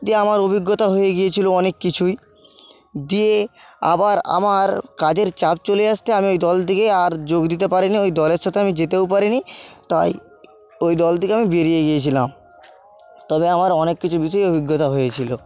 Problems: constant background noise